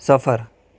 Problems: none marked